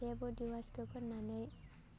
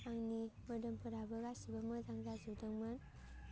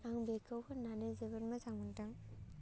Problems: low volume